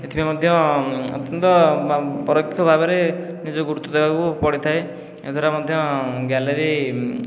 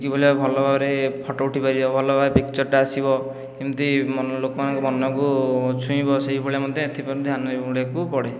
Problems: none marked